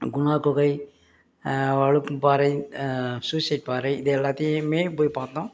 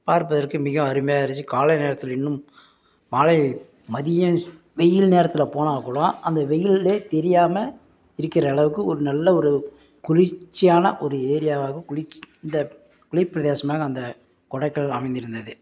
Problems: background sounds at intervals